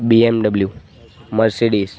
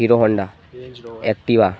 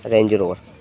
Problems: constant background noise